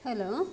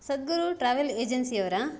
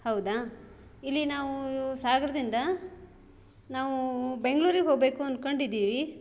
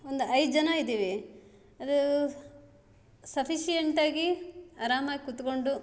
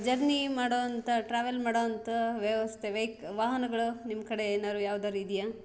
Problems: none marked